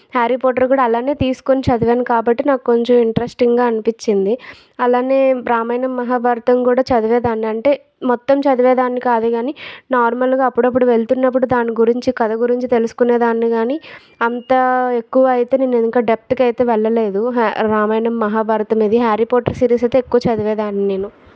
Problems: background sounds at intervals